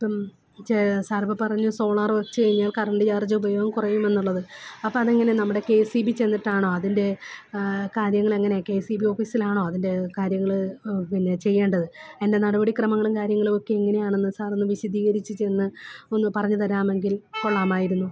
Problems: background sounds at intervals